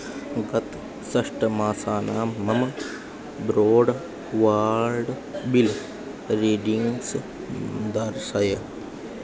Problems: constant background noise